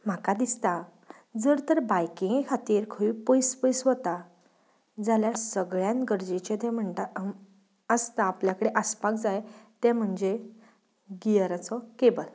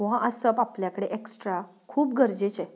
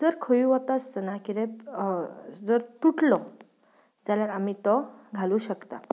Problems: none marked